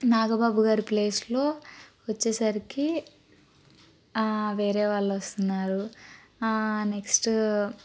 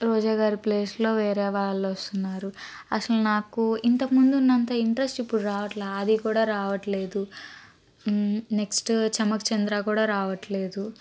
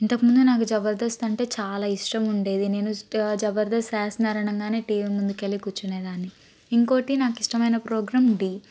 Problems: constant background noise